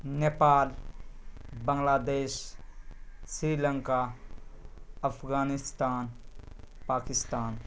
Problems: constant background noise